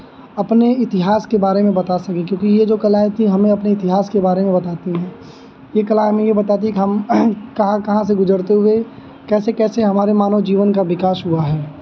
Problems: none marked